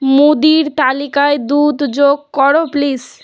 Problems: background sounds at intervals